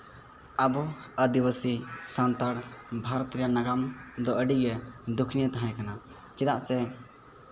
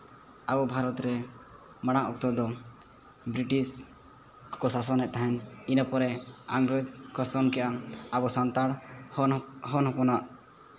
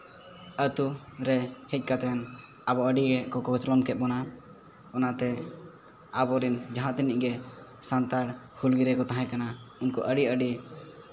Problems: none marked